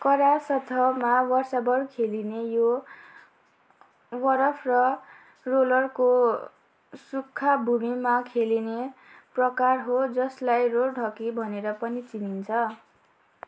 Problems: constant background noise